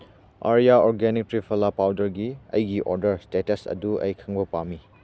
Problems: background sounds at intervals